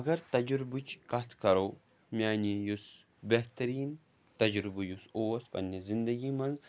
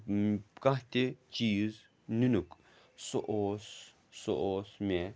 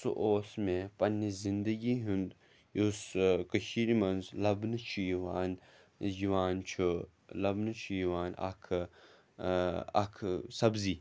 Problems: background sounds at intervals